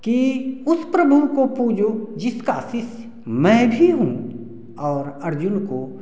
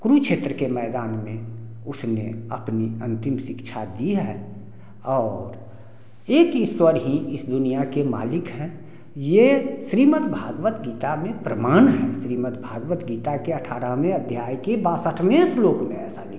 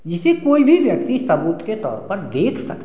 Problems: background sounds at intervals, background conversations at intervals